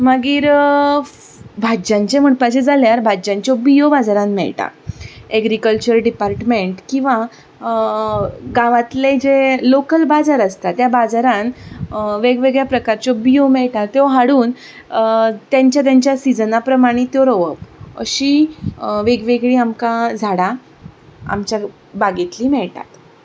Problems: none marked